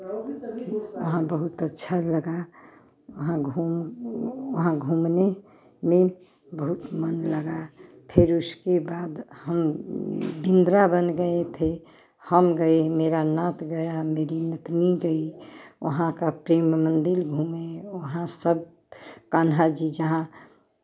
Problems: background sounds at intervals, continuous background conversations